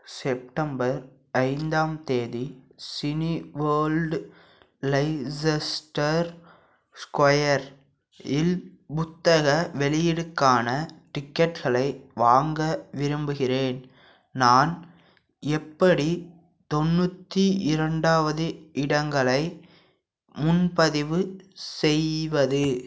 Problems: background sounds at intervals